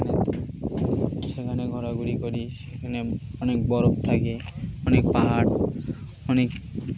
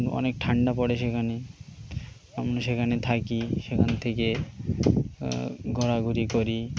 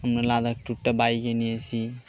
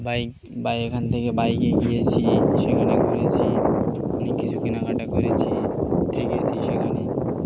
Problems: constant background noise